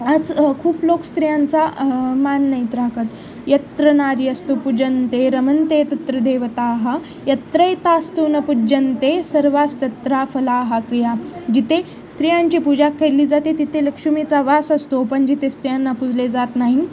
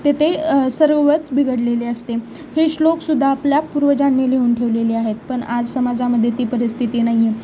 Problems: constant background noise, continuous background conversations